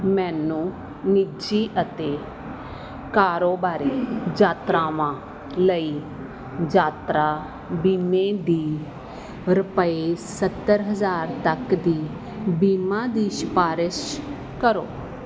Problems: background sounds at intervals